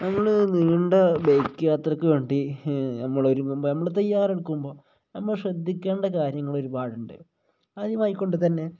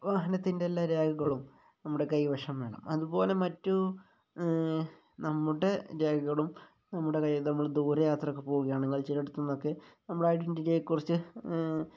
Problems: low volume